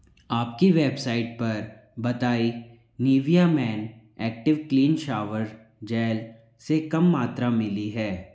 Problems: background sounds at intervals, echo